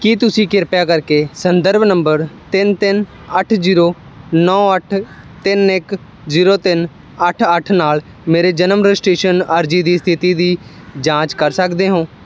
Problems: none marked